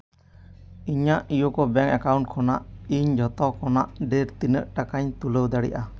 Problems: none marked